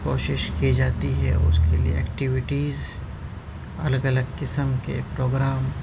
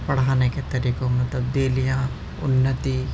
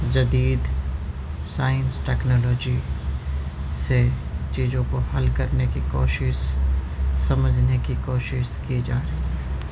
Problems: constant background noise